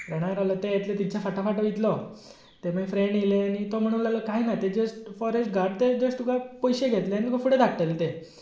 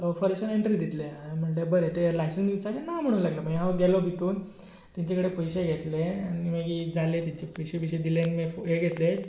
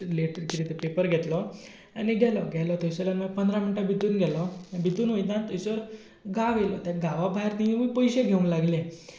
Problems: background sounds at intervals